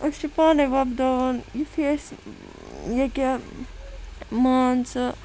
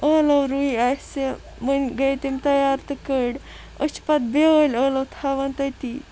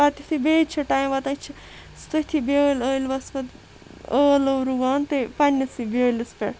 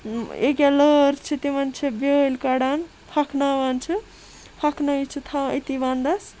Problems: constant background noise